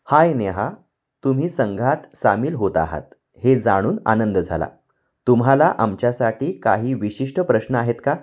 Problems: none marked